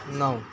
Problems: constant background noise